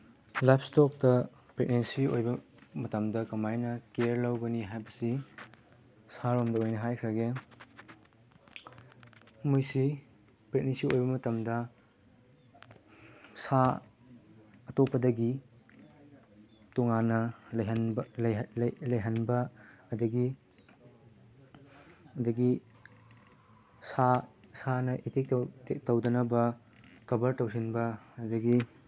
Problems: background sounds at intervals